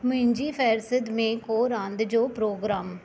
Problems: none marked